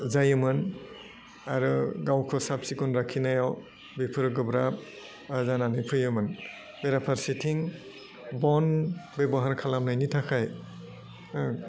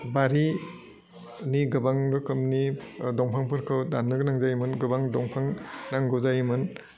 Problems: low volume